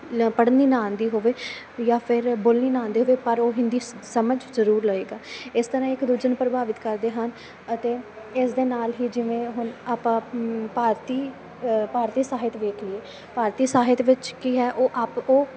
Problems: constant background noise